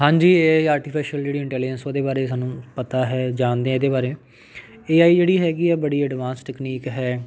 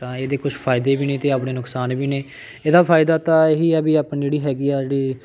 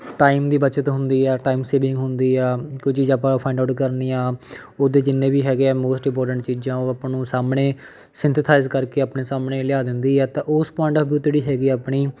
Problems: none marked